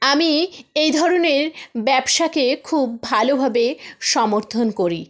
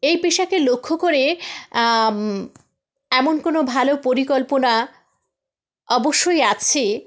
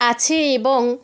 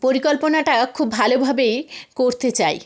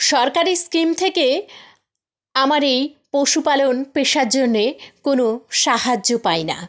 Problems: background sounds at intervals